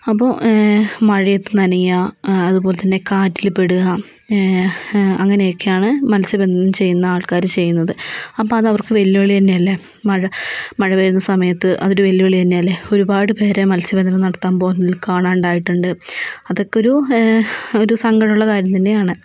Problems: none marked